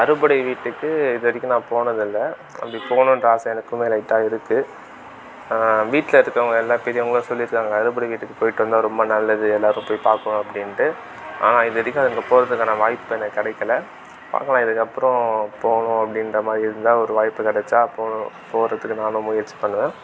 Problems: constant background noise